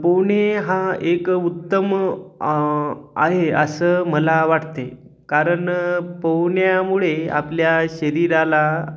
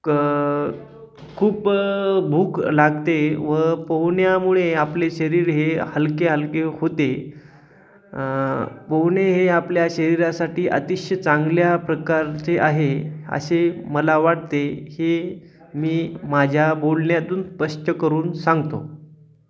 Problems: none marked